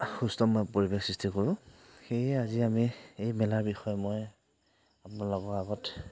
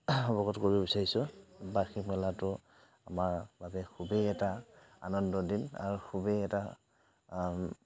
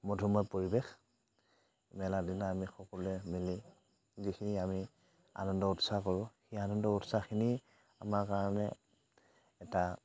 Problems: none marked